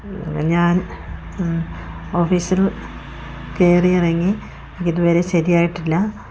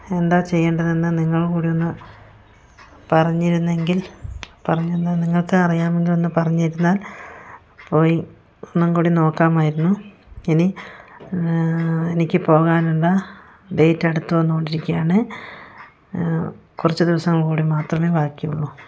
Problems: none marked